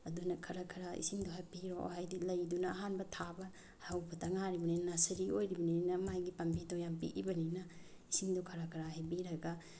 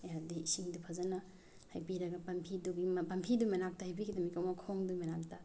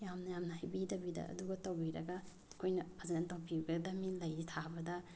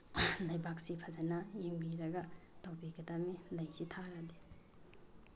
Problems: none marked